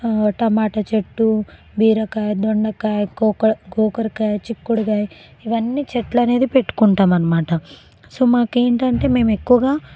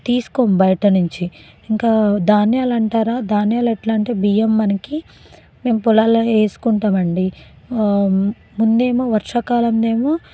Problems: background conversations at intervals